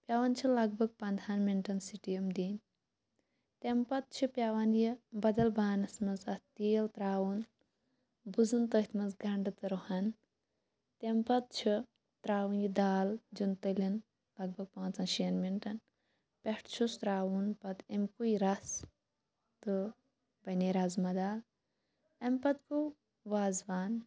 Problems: none marked